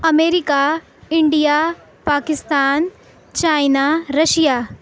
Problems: none marked